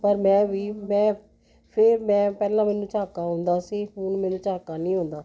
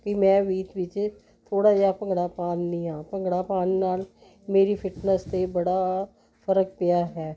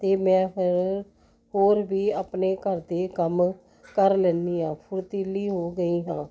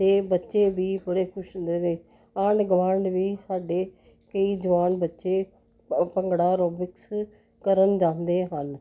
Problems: continuous background conversations